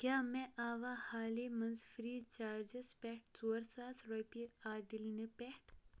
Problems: low volume